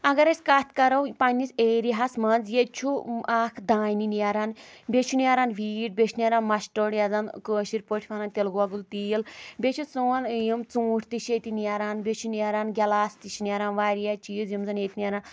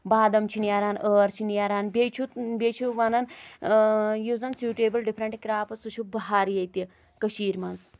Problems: none marked